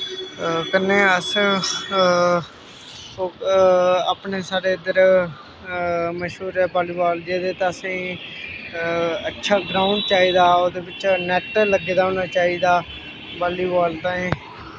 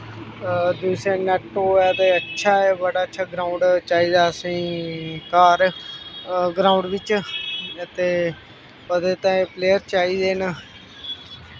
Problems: constant background noise